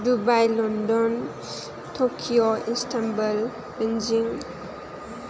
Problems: constant background noise